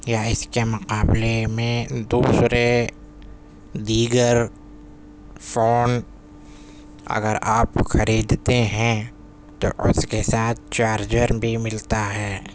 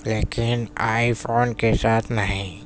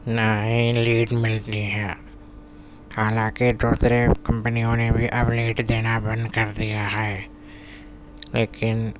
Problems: constant background noise